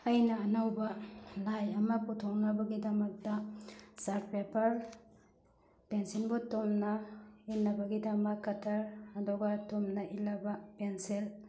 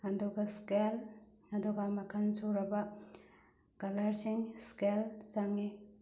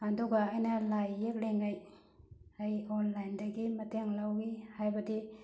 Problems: none marked